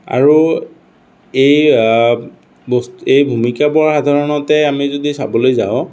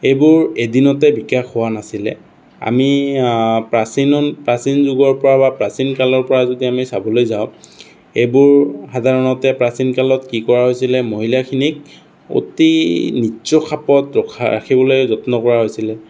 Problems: none marked